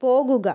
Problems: none marked